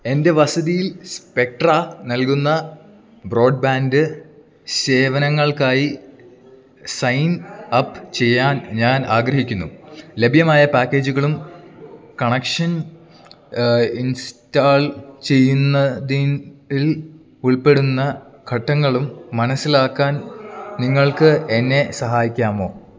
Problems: background sounds at intervals